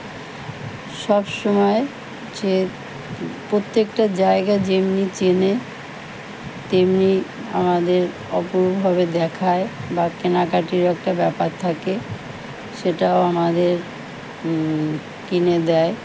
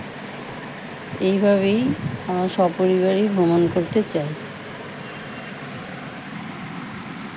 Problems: none marked